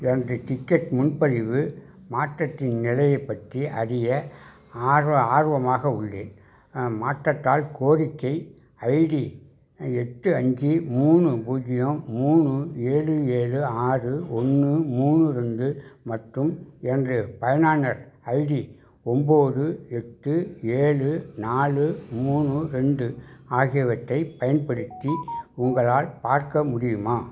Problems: background sounds at intervals